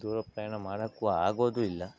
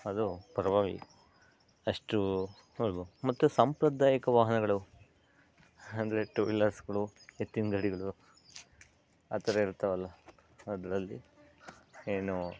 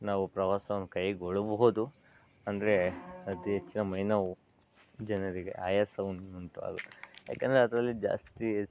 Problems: background sounds at intervals, low volume